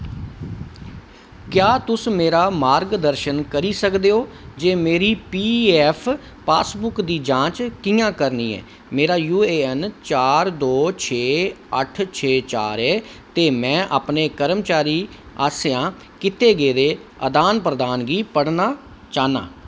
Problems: none marked